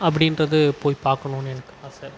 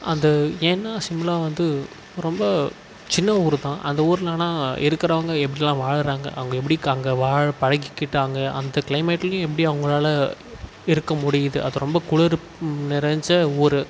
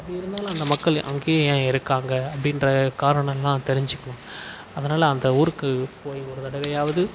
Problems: constant background noise